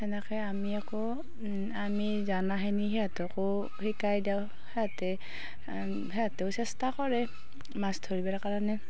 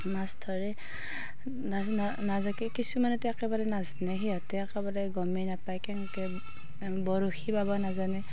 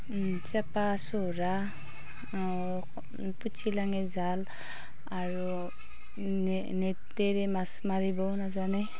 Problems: constant background noise, background conversations at intervals